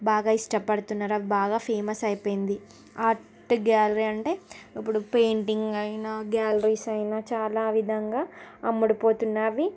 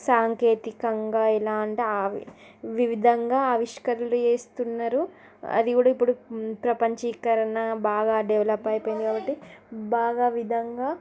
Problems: continuous background conversations